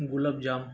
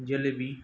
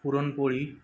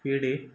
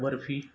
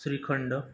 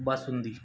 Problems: background sounds at intervals